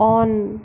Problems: constant background noise